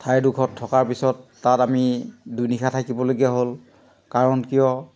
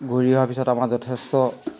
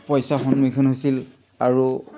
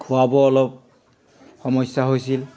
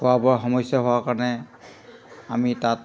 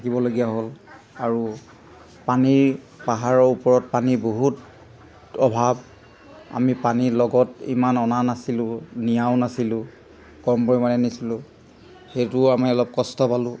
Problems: background sounds at intervals